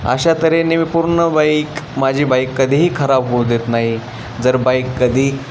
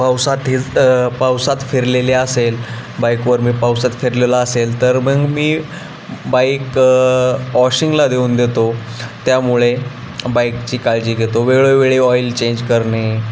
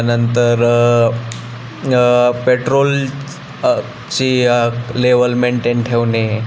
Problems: constant background noise